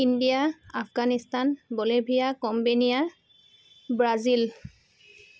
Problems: constant background noise